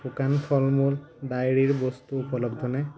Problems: low volume